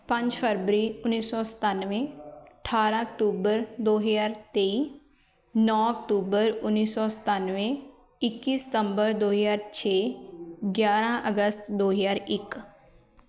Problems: continuous background conversations